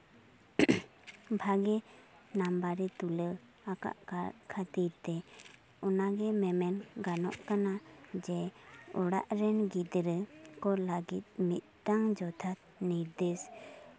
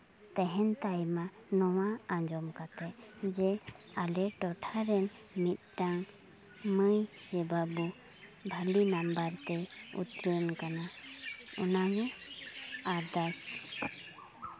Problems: background sounds at intervals, background conversations at intervals